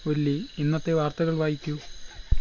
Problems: background sounds at intervals